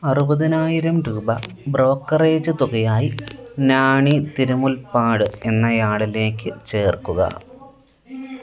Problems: background sounds at intervals